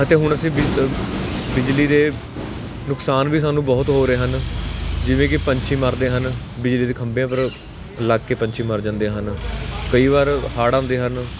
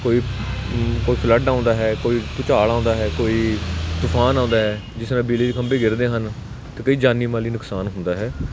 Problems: none marked